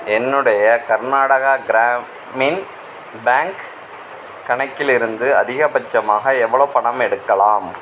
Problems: background sounds at intervals